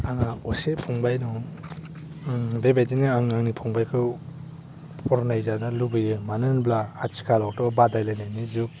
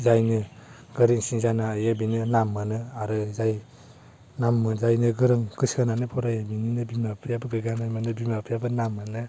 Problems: low volume